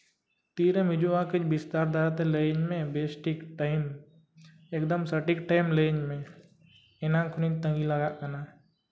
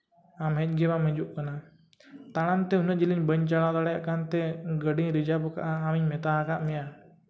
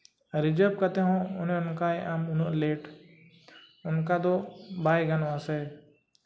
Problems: background sounds at intervals, background conversations at intervals